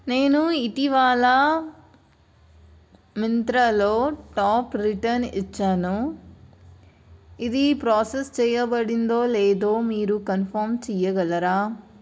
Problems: none marked